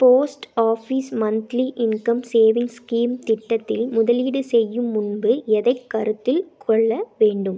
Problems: none marked